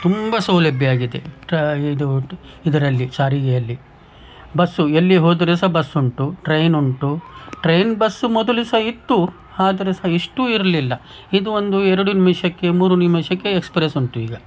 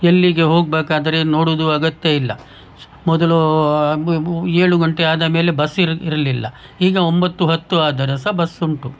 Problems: background sounds at intervals